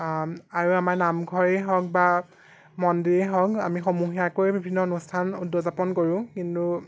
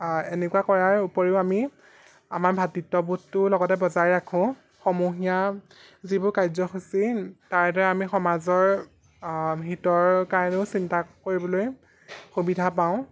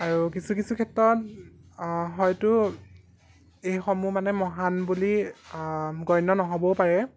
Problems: background sounds at intervals